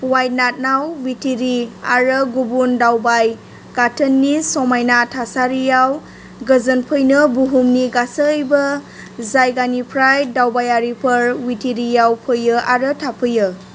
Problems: constant background noise